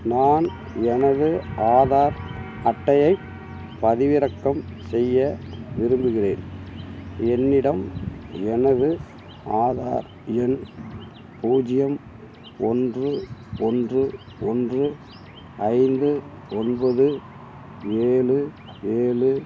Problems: none marked